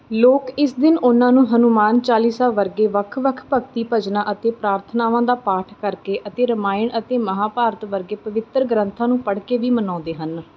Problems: none marked